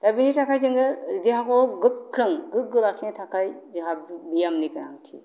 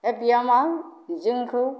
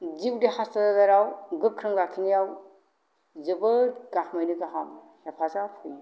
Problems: low volume